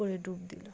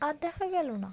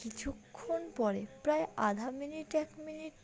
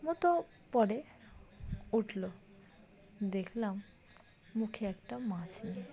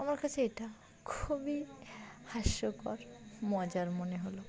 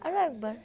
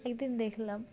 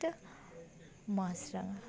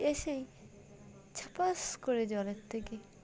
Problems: background sounds at intervals, background conversations at intervals